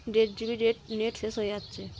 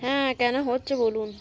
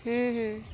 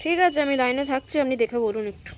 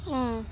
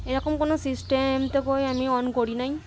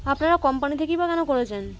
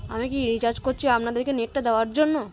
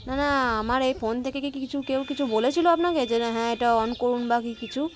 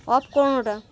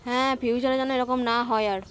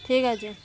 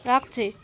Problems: constant background noise, continuous background conversations